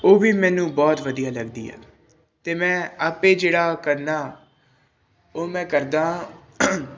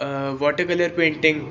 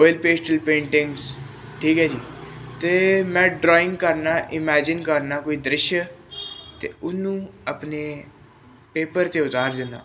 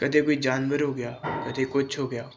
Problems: none marked